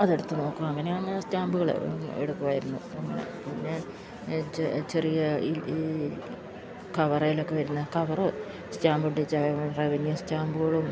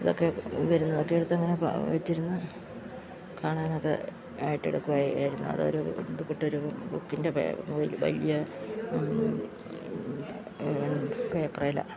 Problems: constant background noise, low volume